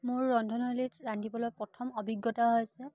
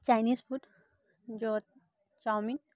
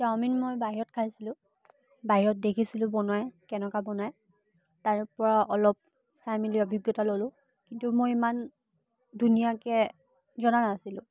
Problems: background sounds at intervals